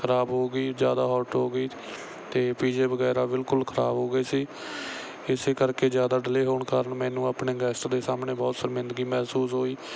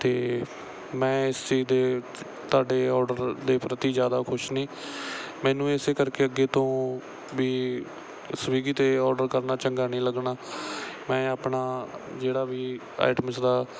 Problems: background sounds at intervals